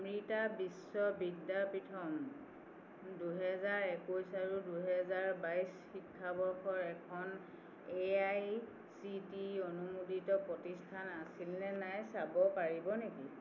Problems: constant background noise